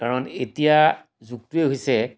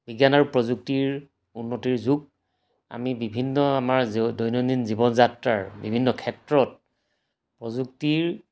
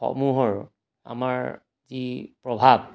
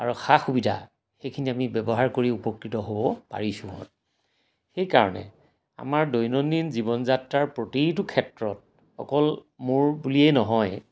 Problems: background sounds at intervals